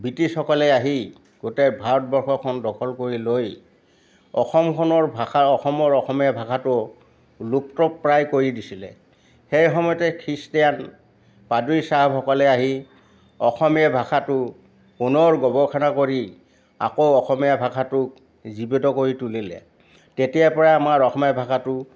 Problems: none marked